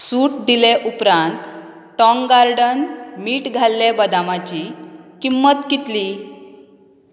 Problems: constant background noise